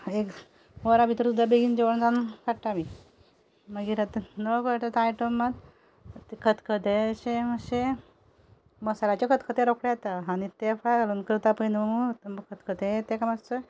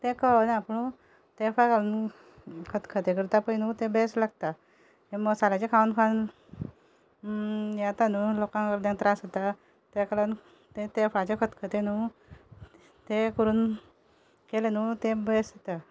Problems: background sounds at intervals